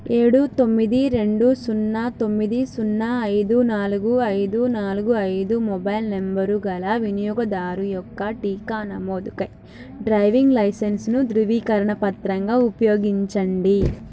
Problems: none marked